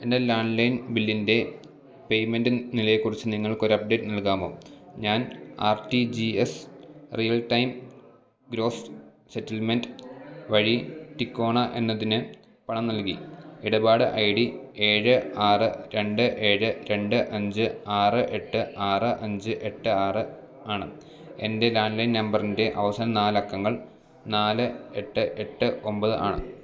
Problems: none marked